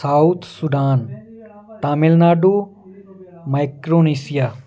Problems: none marked